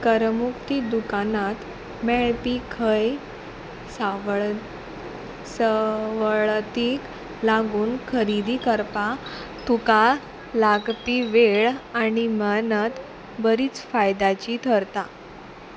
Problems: none marked